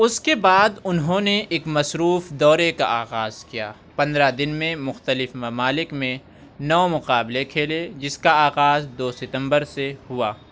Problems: none marked